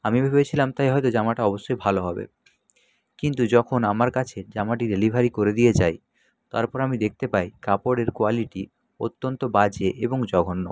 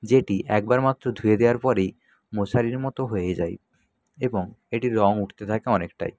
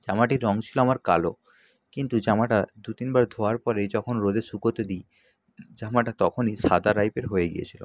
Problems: none marked